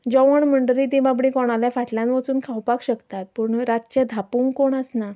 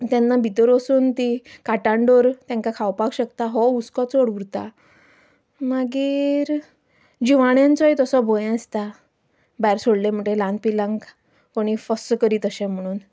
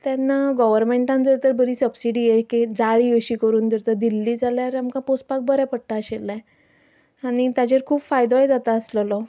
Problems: none marked